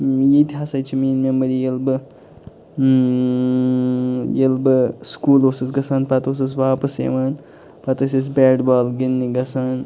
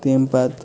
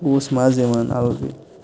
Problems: constant background noise, background conversations at intervals